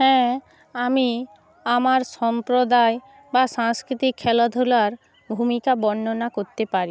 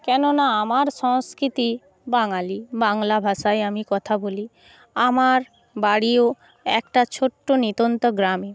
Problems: background sounds at intervals